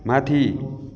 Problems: constant background noise